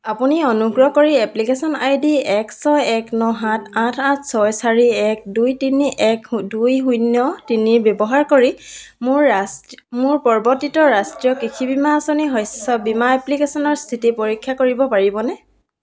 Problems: low volume